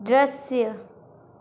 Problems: constant background noise